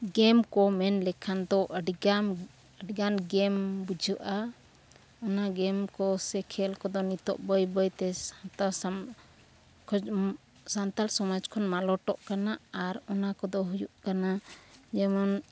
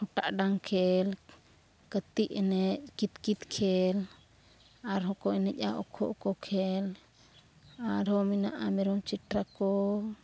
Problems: none marked